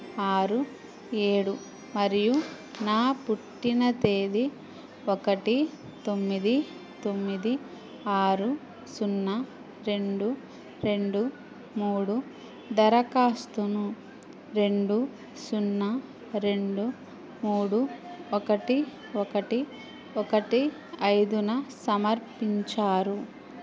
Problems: none marked